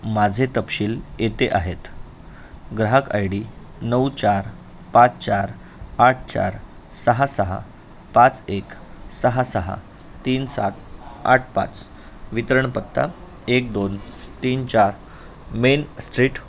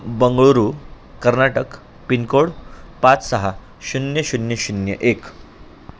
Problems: constant background noise, background conversations at intervals